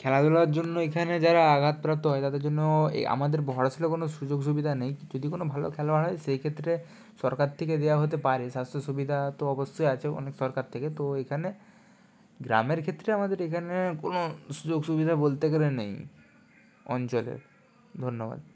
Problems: constant background noise